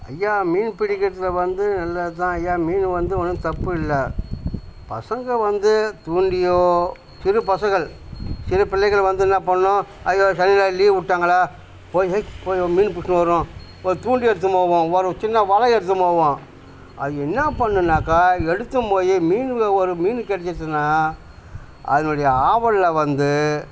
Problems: none marked